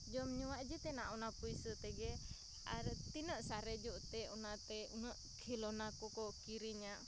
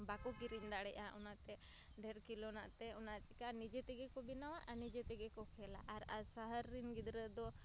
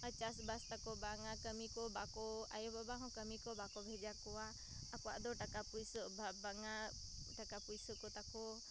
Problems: constant background noise